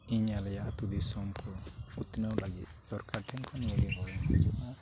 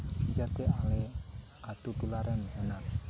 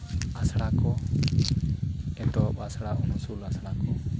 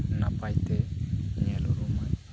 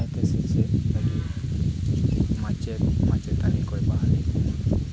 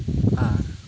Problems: constant background noise